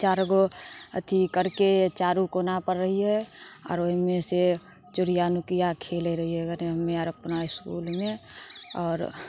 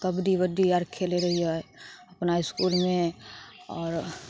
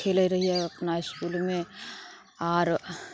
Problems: none marked